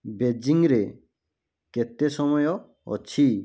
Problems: none marked